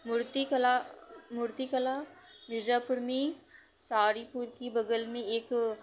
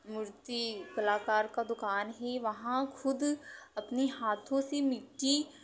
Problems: background sounds at intervals